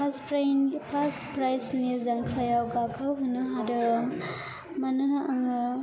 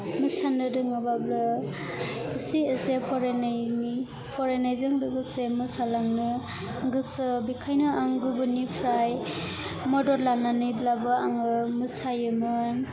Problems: constant background noise